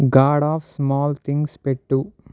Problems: none marked